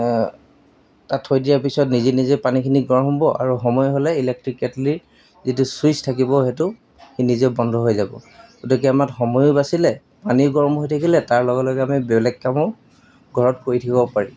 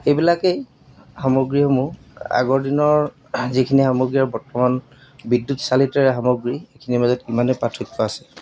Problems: background sounds at intervals